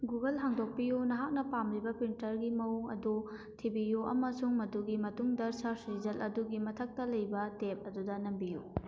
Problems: none marked